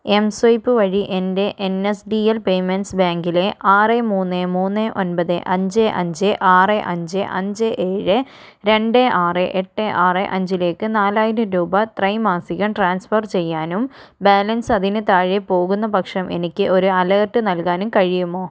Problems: none marked